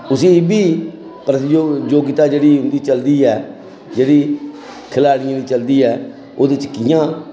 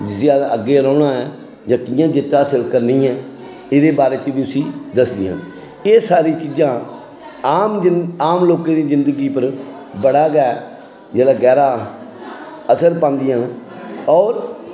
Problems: constant background noise